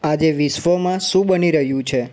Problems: none marked